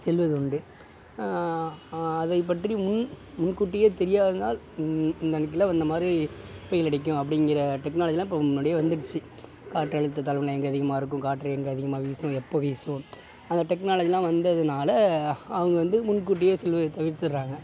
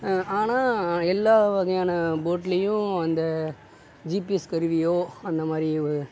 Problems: constant background noise